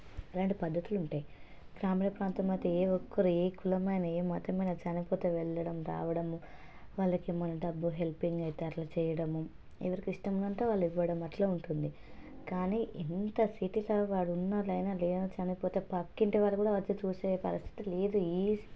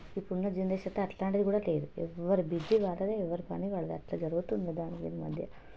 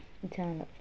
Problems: constant background noise, low volume